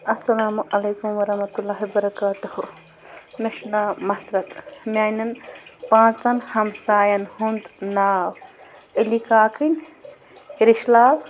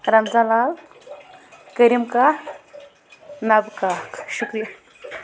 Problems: constant background noise